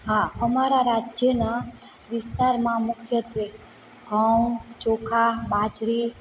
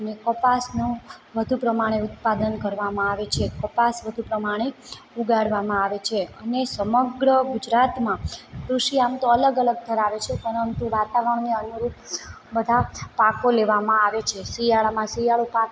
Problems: constant background noise